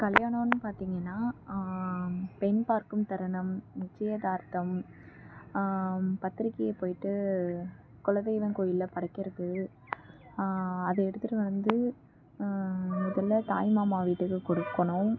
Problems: background sounds at intervals